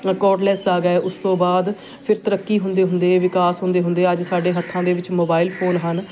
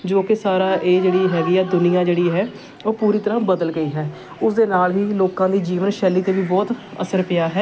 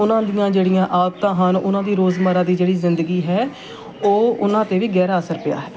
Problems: constant background noise, continuous background conversations